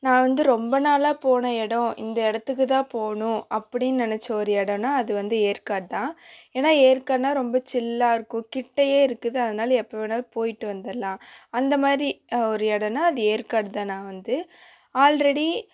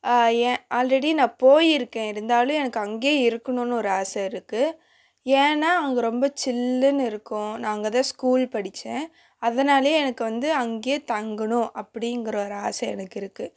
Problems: constant background noise